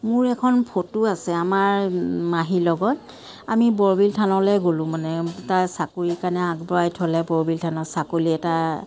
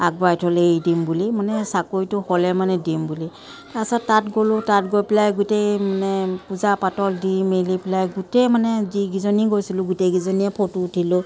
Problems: constant background noise